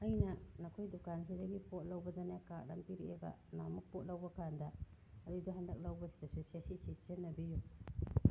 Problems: background sounds at intervals